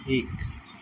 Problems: constant background noise